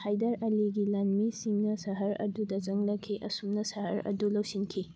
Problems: background sounds at intervals